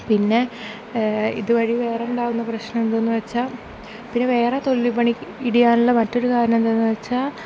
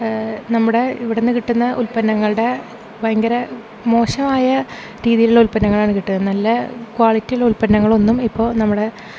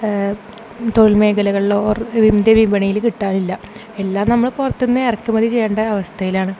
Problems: none marked